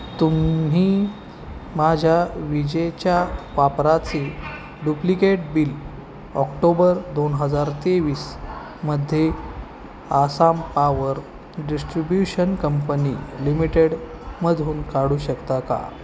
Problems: constant background noise